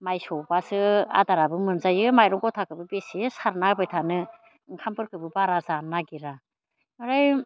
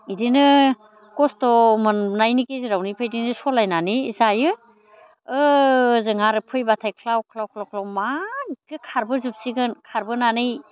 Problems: constant background noise